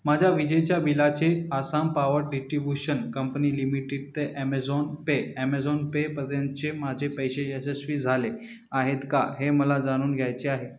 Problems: constant background noise